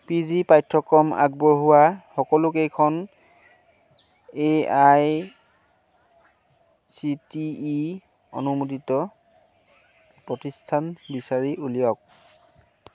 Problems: none marked